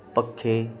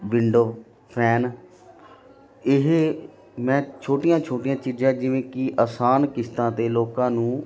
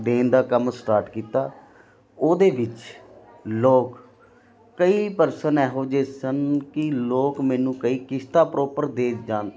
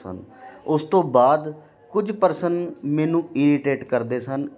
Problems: continuous background conversations